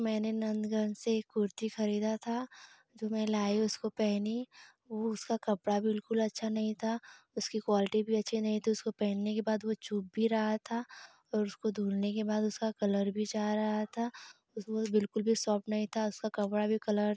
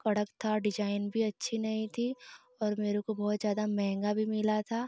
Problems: constant background noise